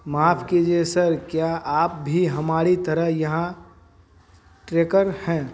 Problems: none marked